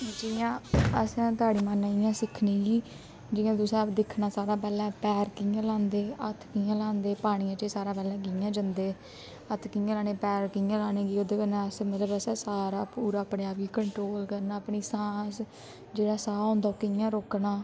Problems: constant background noise